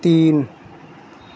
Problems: none marked